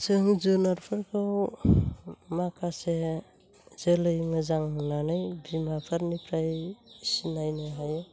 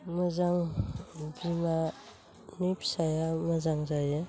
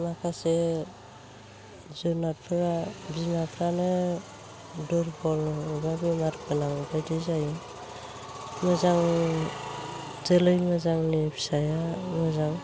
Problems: constant background noise